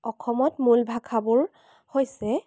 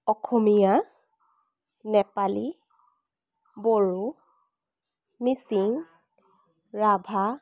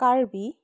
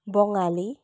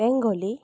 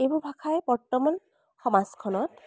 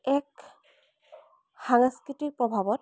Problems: constant background noise